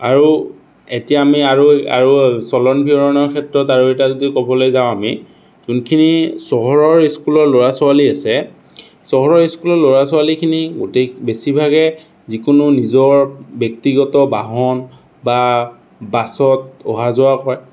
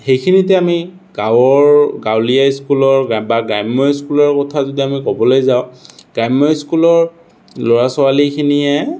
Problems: none marked